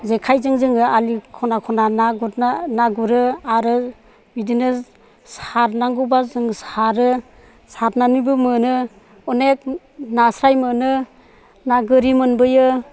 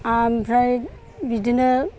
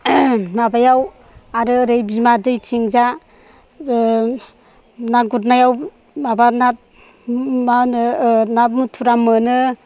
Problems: none marked